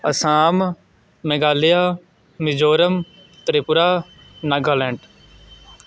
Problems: none marked